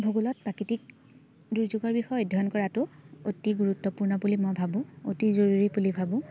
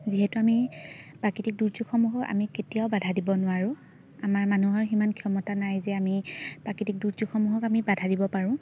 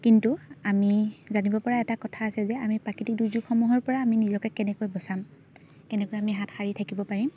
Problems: none marked